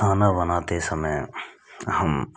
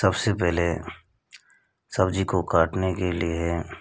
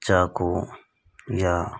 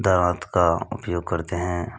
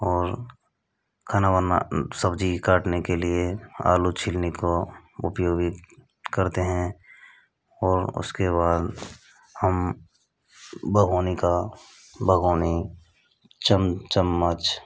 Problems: constant background noise